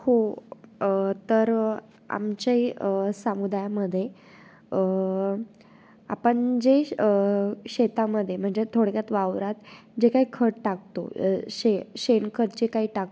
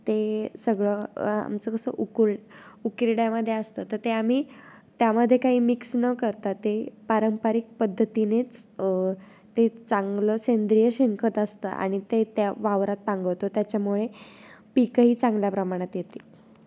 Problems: none marked